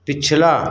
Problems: none marked